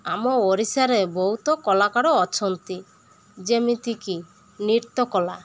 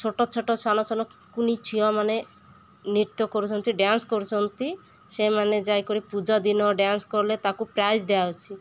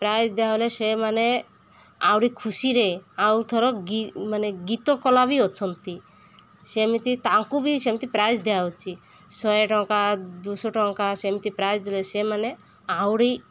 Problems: none marked